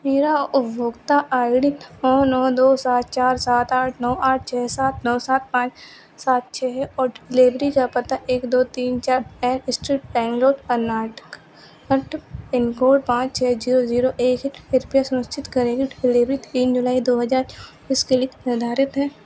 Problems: constant background noise